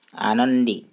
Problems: none marked